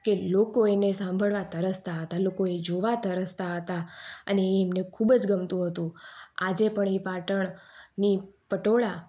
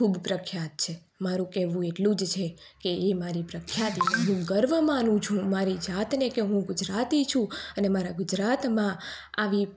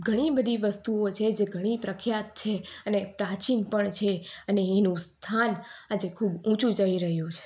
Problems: background sounds at intervals